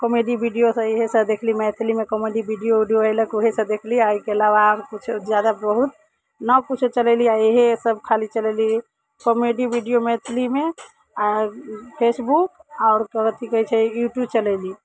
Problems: background sounds at intervals